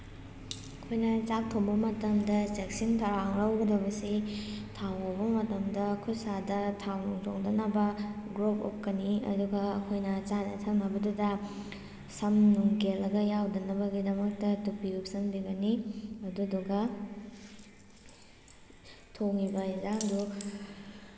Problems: constant background noise